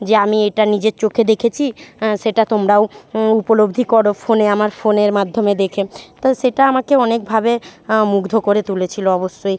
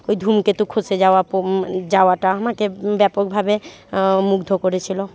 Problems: none marked